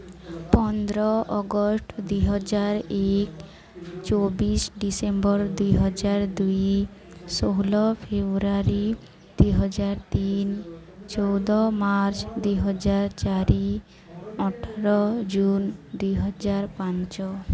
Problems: continuous background conversations